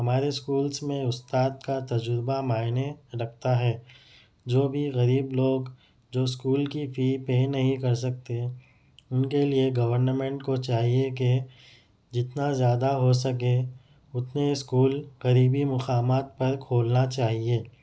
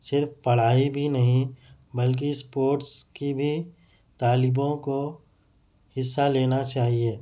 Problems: none marked